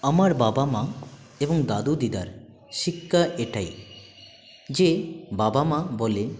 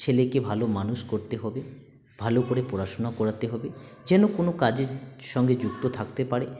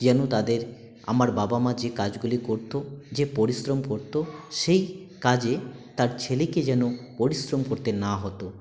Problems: continuous background conversations